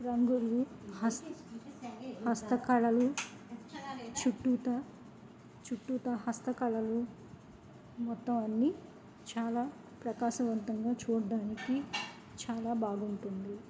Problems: background sounds at intervals, low volume